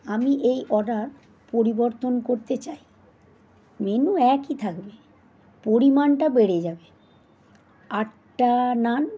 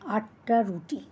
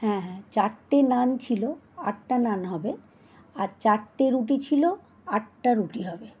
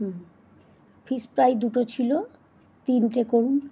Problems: constant background noise